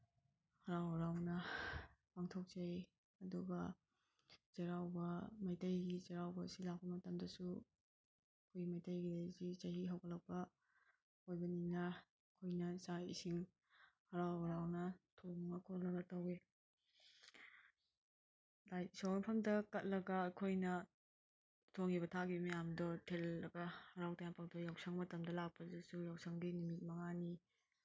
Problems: none marked